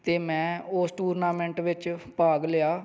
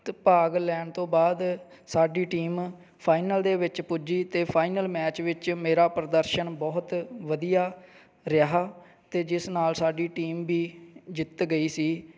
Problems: background sounds at intervals